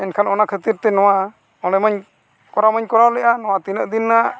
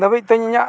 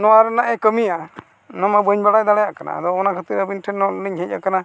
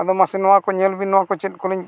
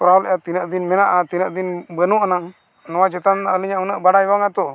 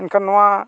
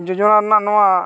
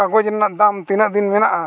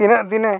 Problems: background sounds at intervals